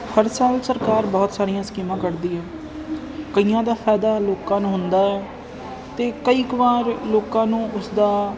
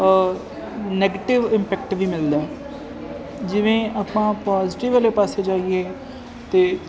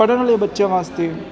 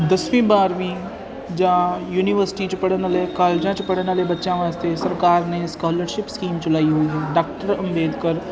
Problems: constant background noise